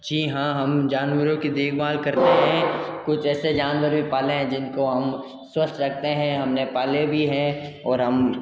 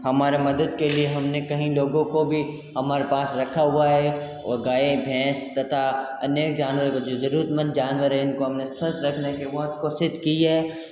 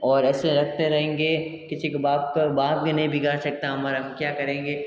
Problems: constant background noise, echo